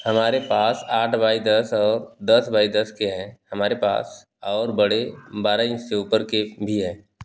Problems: none marked